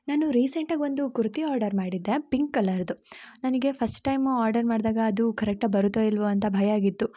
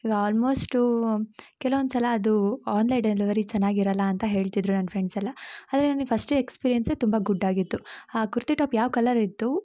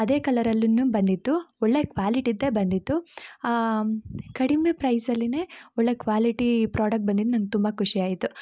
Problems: background sounds at intervals